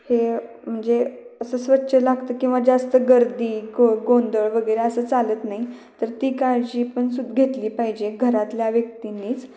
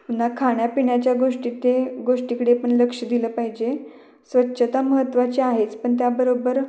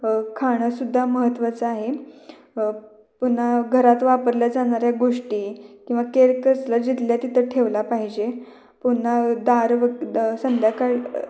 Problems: background sounds at intervals, echo